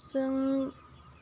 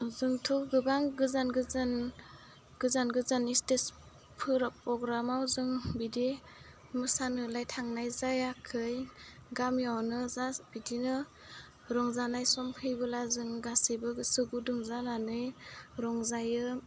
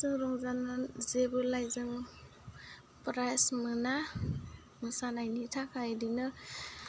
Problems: low volume